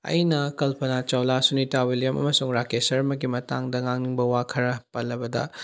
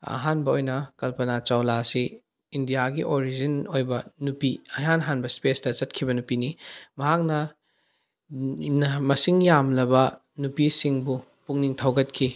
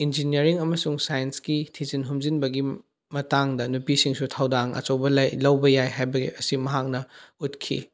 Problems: none marked